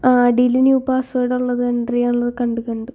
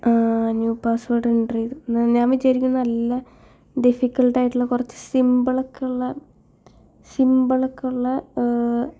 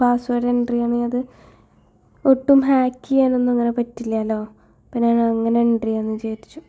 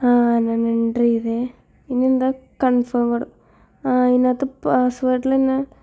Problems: none marked